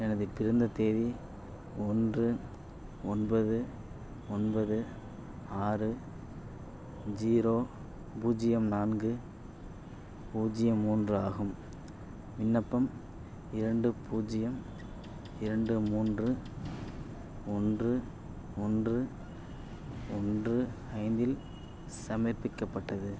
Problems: none marked